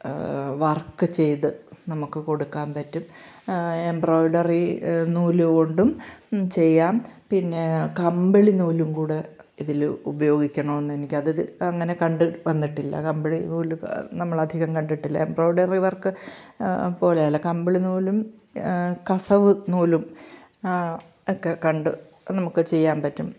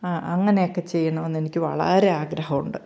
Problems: none marked